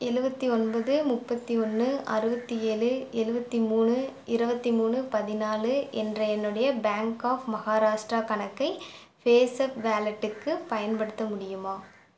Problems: background sounds at intervals